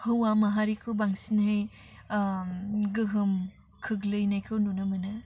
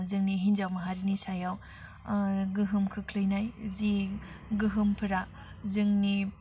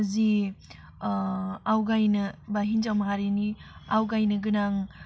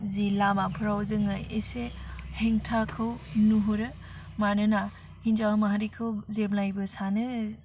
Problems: constant background noise